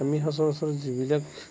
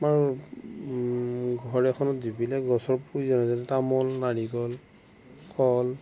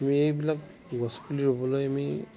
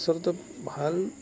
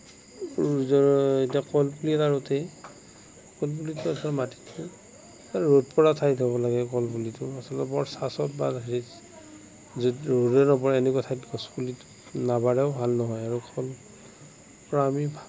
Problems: constant background noise, low volume